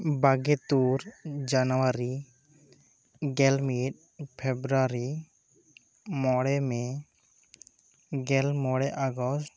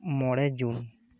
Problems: none marked